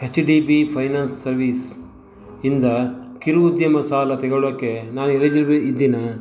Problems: constant background noise